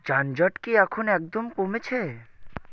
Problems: constant background noise